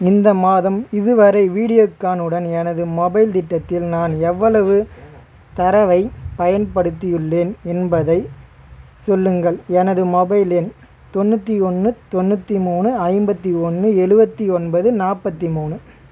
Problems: constant background noise, background conversations at intervals